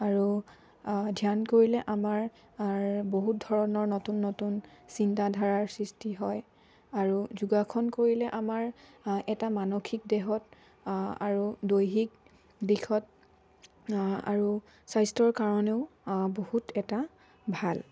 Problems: low volume